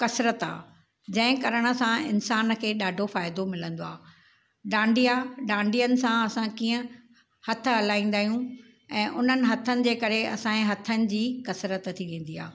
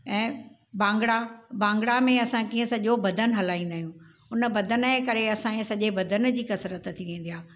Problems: none marked